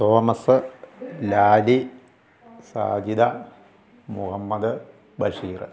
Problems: none marked